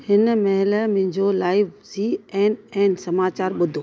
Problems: constant background noise, background conversations at intervals